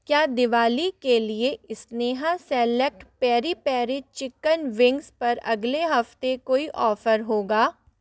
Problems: none marked